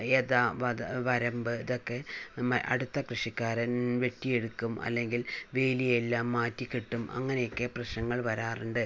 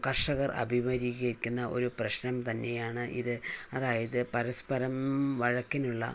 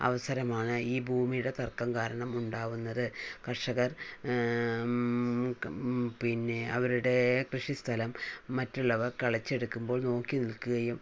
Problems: low volume